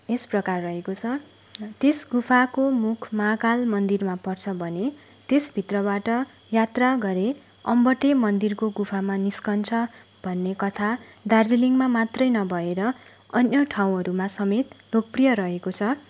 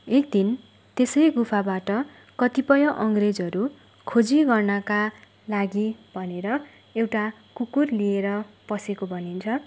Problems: none marked